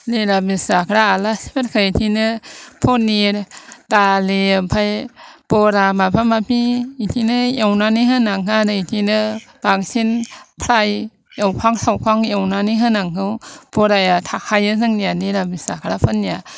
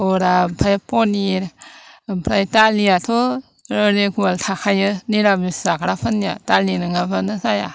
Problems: constant background noise